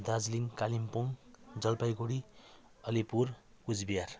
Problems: background sounds at intervals